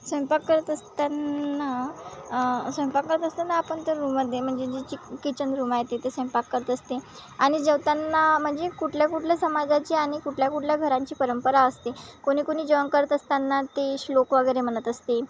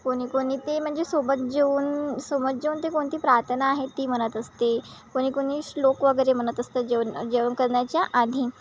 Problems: constant background noise